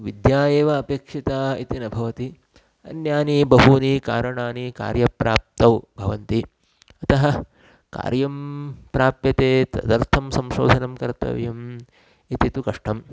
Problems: constant background noise